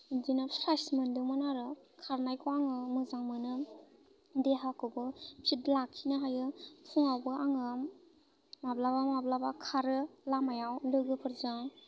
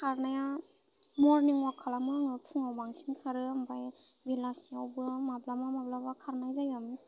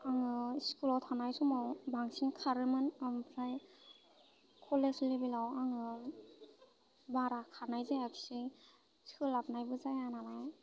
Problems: constant background noise